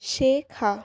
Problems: none marked